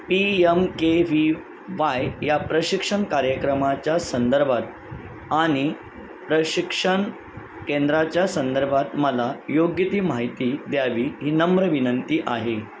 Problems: constant background noise